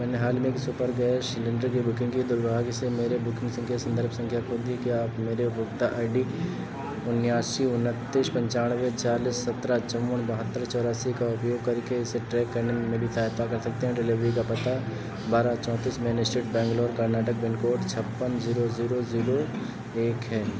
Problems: none marked